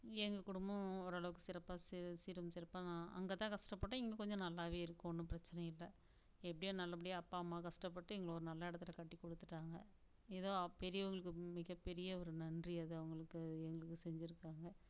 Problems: constant background noise, low volume